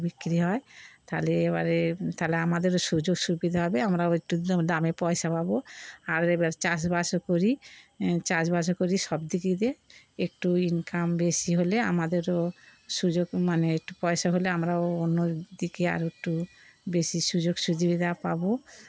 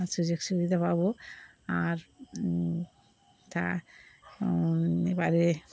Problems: background sounds at intervals